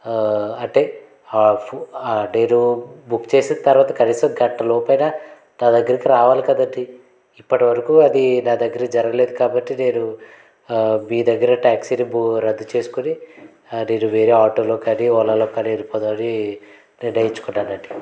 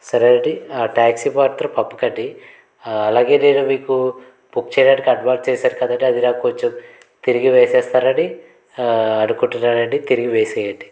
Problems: none marked